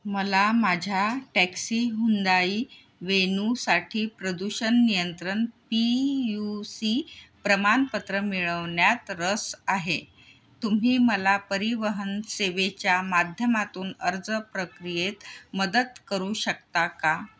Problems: background sounds at intervals